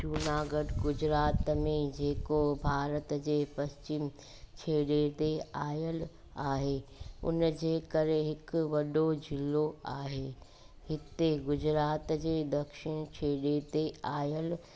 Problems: constant background noise